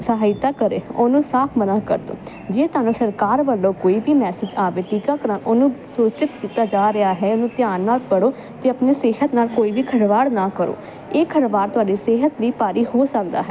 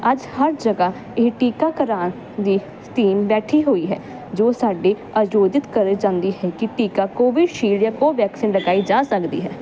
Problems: constant background noise